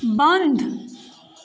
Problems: constant background noise